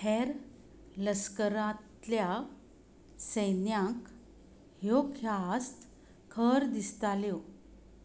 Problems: none marked